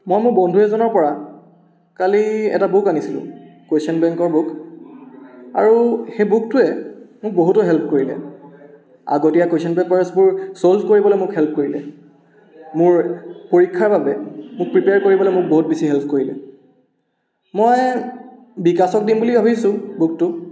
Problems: background conversations at intervals, echo